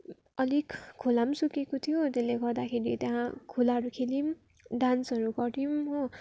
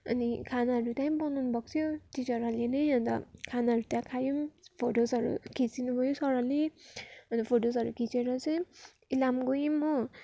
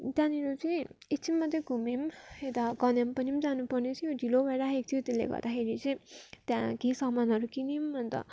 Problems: background sounds at intervals